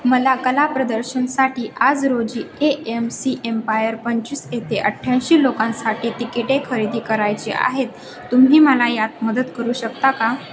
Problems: constant background noise, continuous background conversations, echo